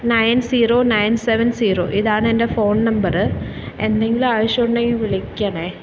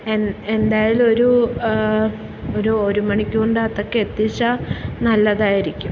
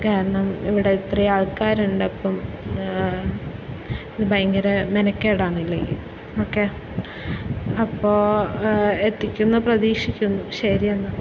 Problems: background sounds at intervals